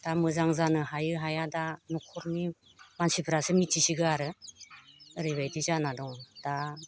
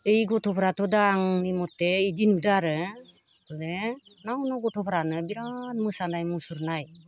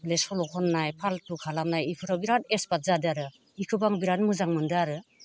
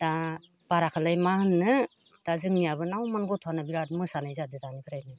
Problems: constant background noise